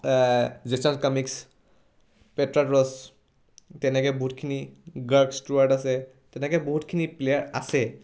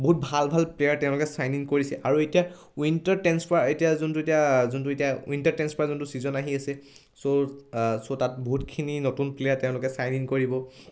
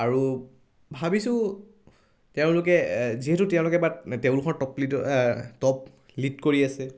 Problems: none marked